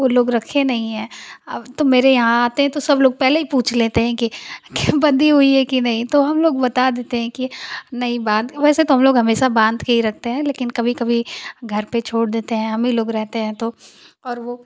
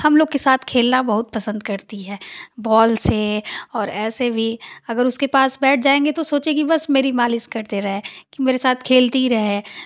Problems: constant background noise